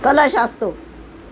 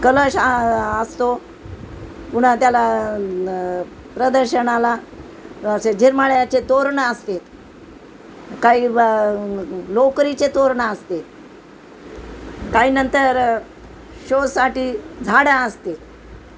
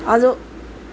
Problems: constant background noise